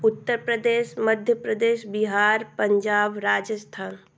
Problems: none marked